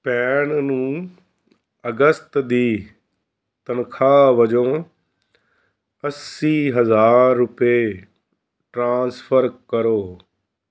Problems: background sounds at intervals